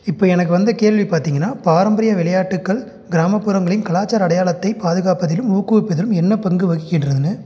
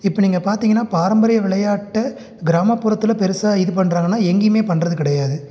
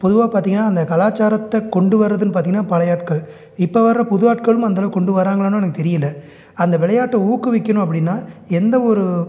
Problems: none marked